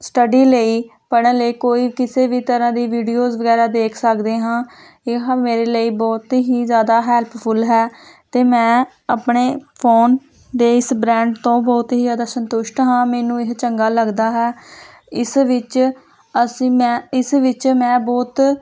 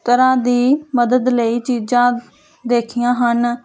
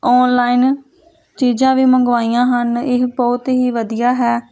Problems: none marked